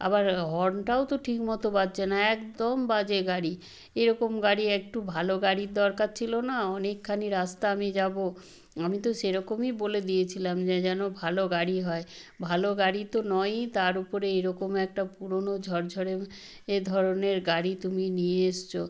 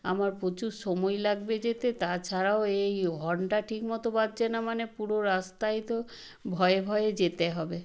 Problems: none marked